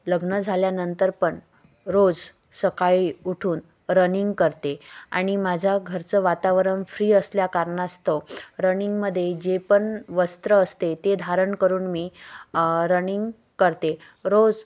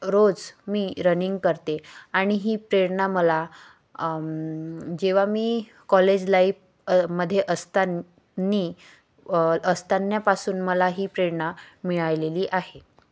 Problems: none marked